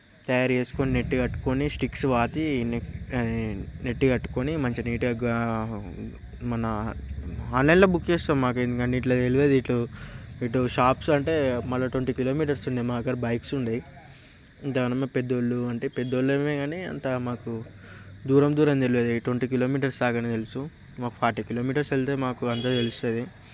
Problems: constant background noise, background conversations at intervals